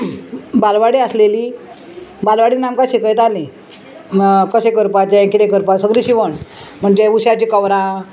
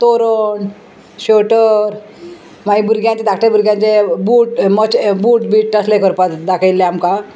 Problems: constant background noise